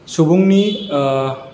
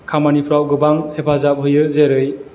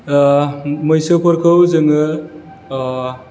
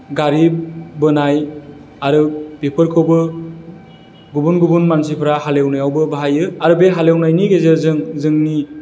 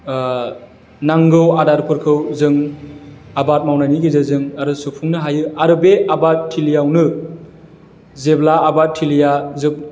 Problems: constant background noise